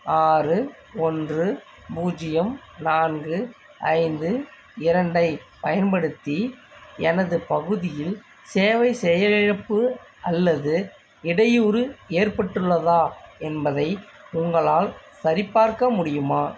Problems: constant background noise